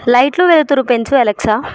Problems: background sounds at intervals